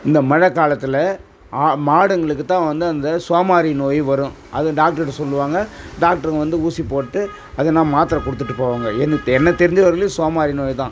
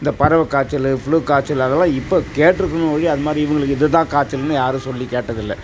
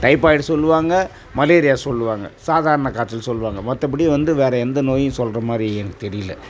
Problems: constant background noise